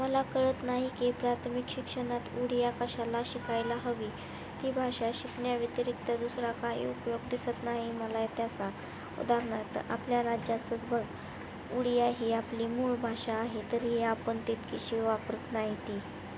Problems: constant background noise